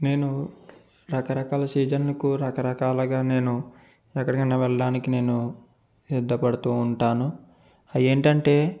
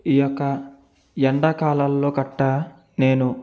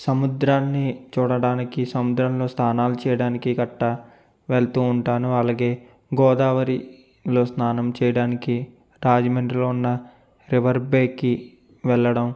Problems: none marked